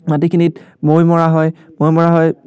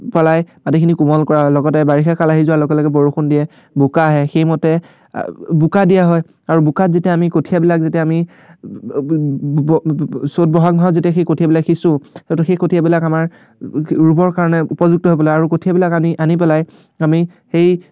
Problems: none marked